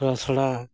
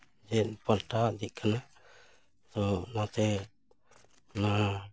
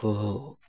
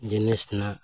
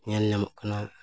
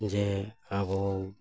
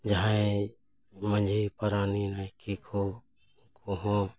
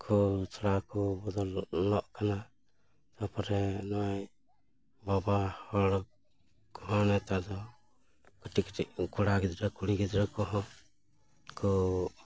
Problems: none marked